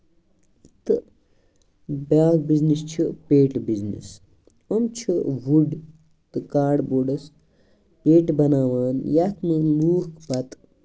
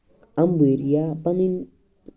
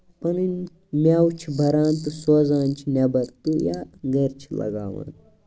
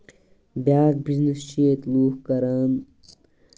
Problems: background sounds at intervals